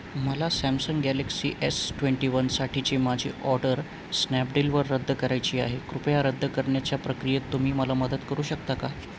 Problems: constant background noise